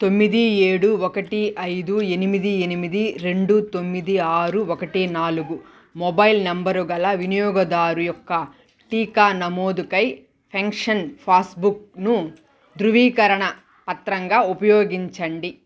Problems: background sounds at intervals